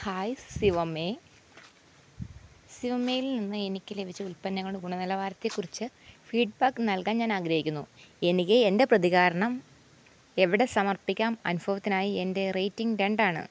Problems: constant background noise